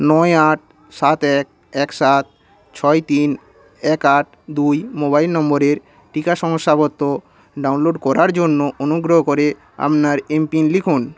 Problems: constant background noise